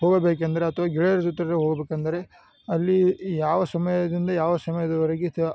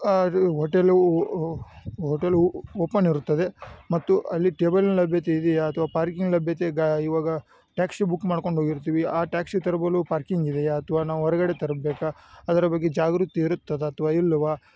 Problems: none marked